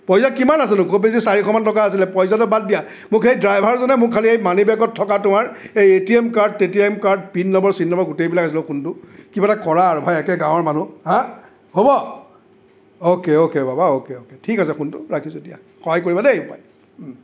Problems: none marked